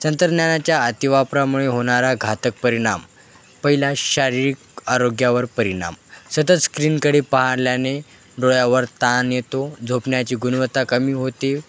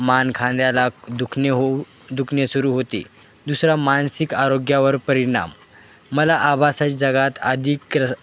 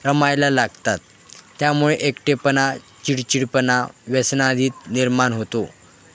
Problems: constant background noise, background conversations at intervals